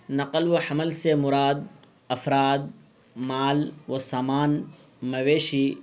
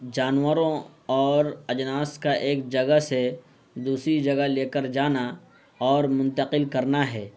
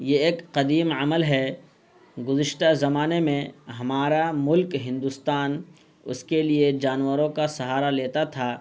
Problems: constant background noise